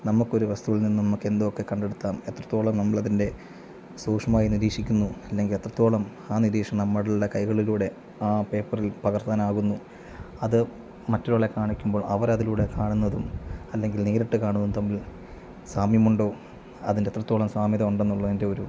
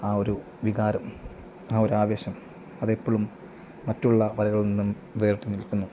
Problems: none marked